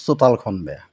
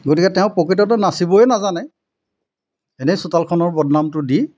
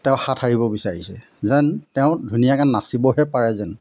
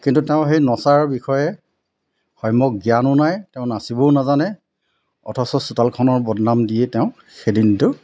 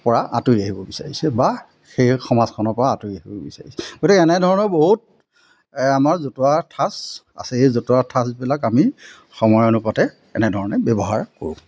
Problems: constant background noise